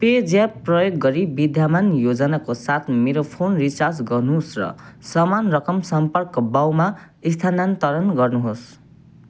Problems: none marked